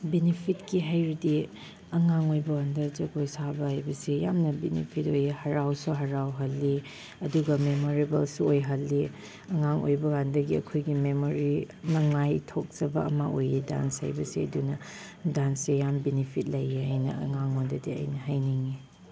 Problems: none marked